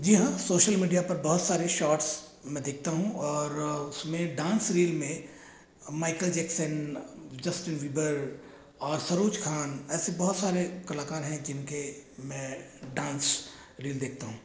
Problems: echo